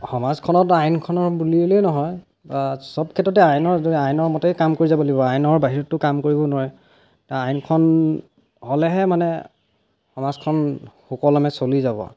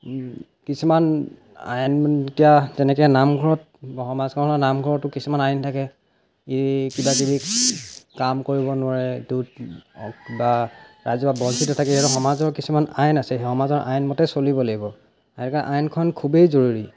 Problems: background sounds at intervals